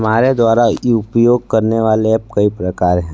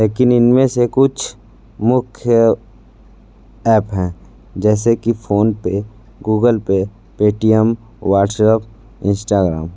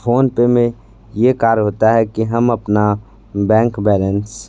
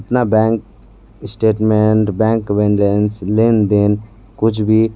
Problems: none marked